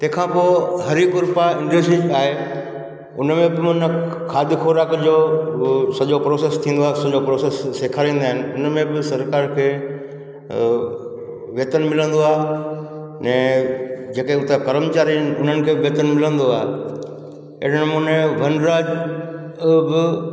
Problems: background sounds at intervals, echo